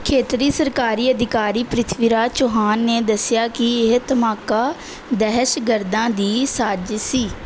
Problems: none marked